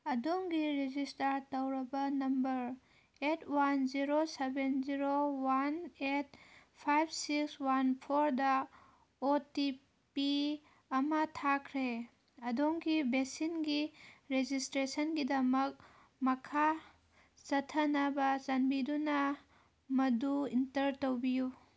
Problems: none marked